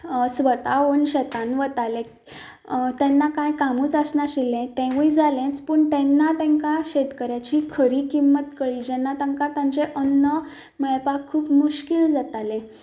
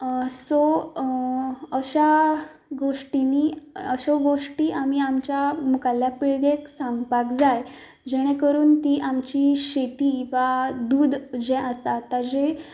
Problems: background sounds at intervals